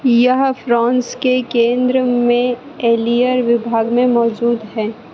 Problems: constant background noise